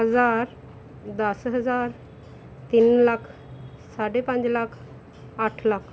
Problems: none marked